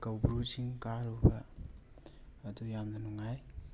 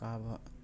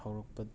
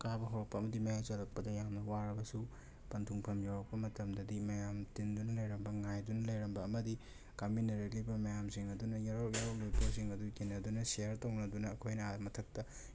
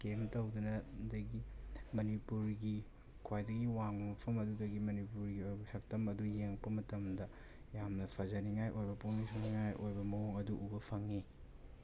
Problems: background sounds at intervals